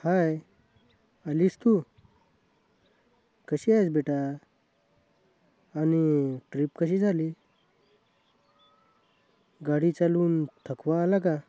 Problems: background sounds at intervals